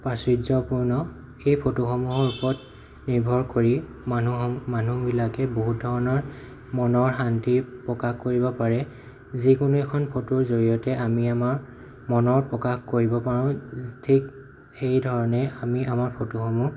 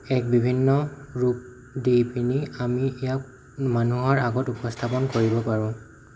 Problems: background sounds at intervals